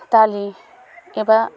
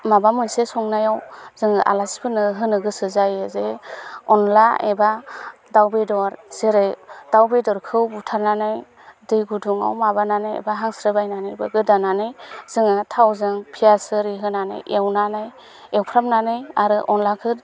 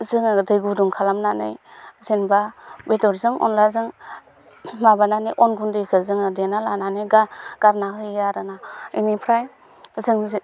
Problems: constant background noise